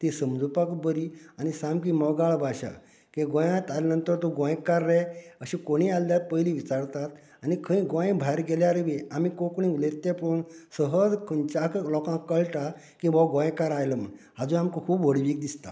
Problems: background conversations at intervals